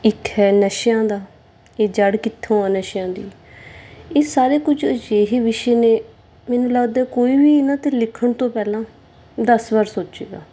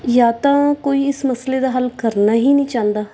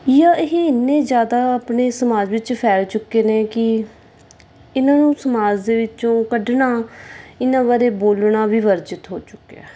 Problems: none marked